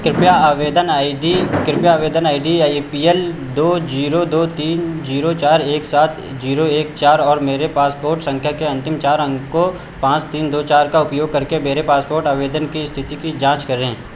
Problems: constant background noise, echo